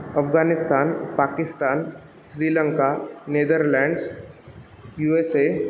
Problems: constant background noise, continuous background conversations